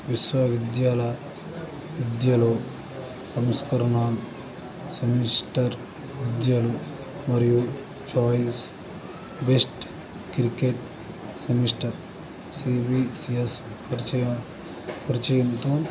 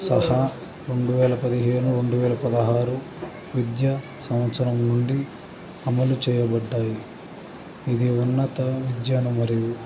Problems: constant background noise